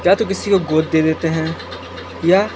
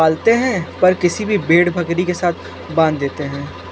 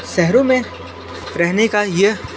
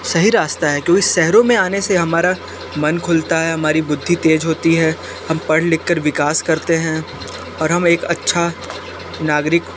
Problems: constant background noise